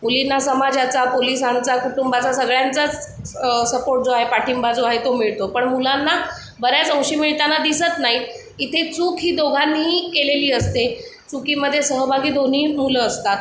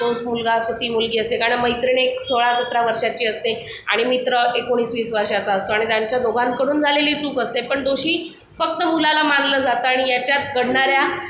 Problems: background sounds at intervals